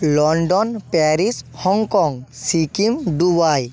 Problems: none marked